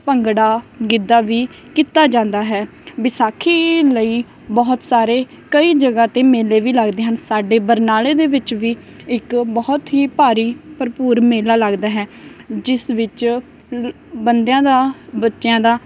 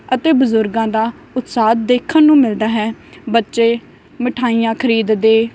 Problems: none marked